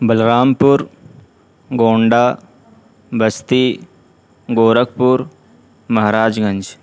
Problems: background sounds at intervals